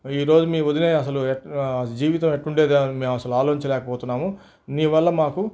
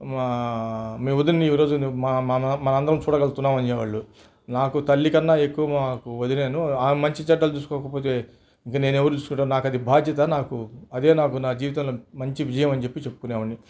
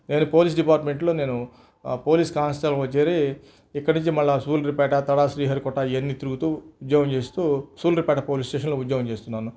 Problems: background sounds at intervals